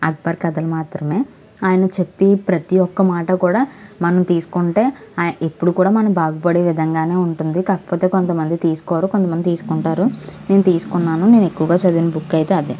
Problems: constant background noise